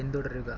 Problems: background sounds at intervals, low volume